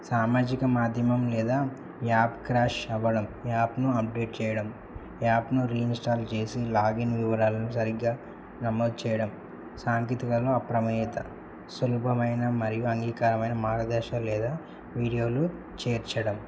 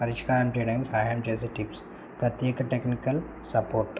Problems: low volume